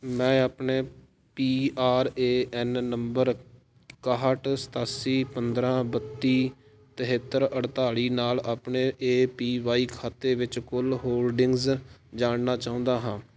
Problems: background sounds at intervals